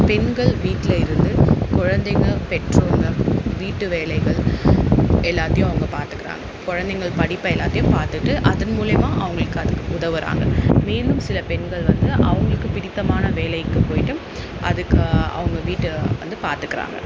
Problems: constant background noise